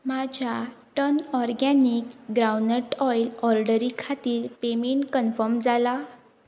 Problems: constant background noise